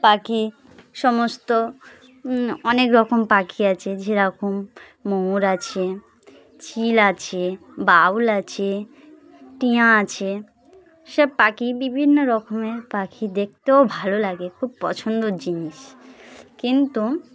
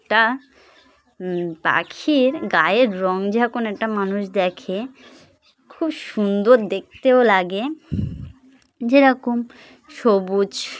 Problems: constant background noise, background conversations at intervals